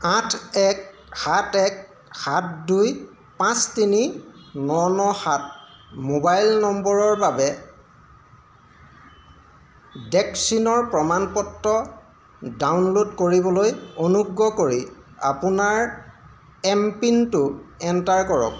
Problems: constant background noise